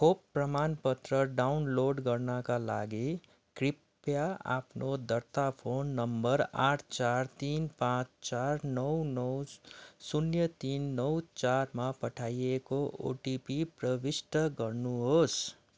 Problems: none marked